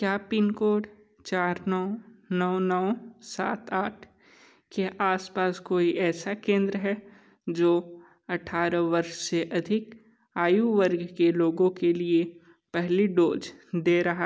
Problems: none marked